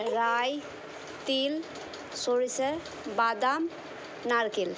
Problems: constant background noise